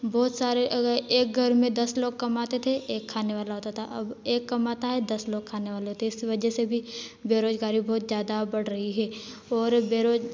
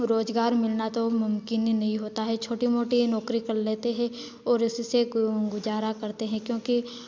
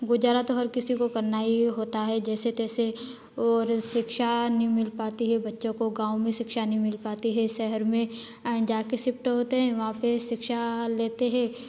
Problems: none marked